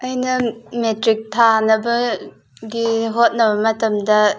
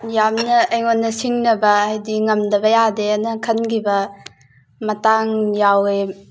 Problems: background sounds at intervals